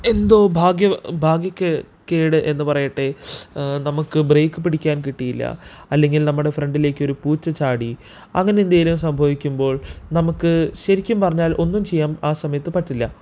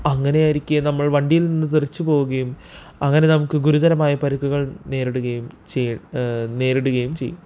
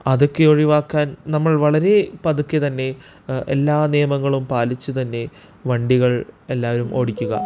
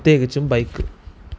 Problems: background sounds at intervals